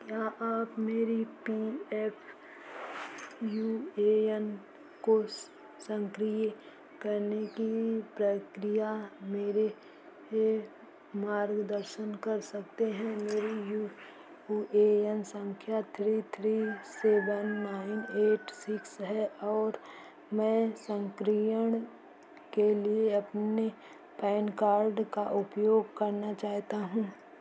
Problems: constant background noise, echo